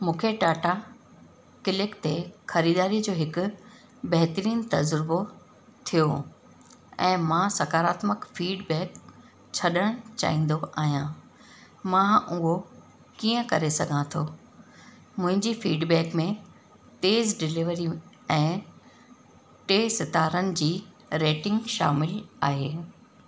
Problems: constant background noise, echo